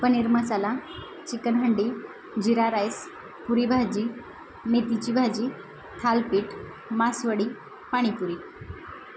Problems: constant background noise